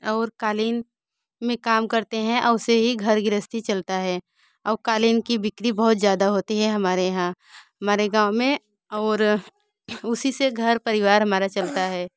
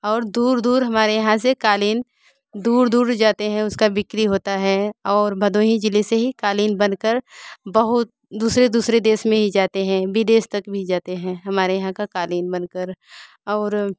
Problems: none marked